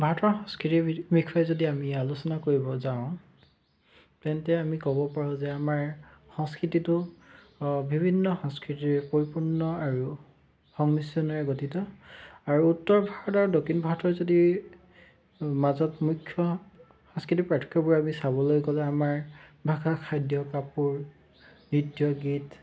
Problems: constant background noise